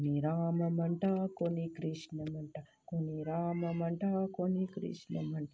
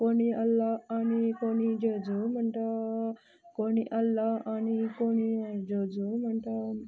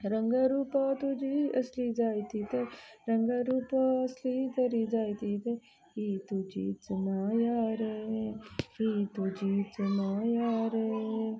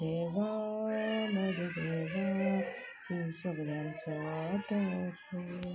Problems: background sounds at intervals, low volume